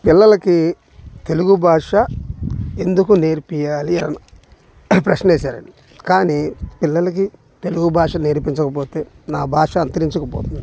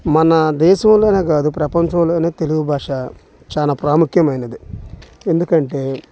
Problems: constant background noise